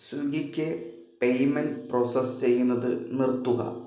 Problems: echo, low volume